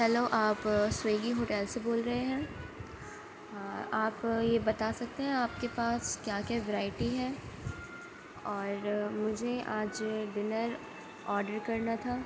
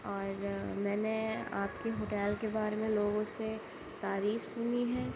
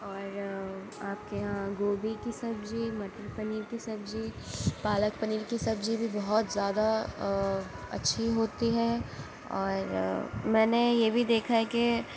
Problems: constant background noise, low volume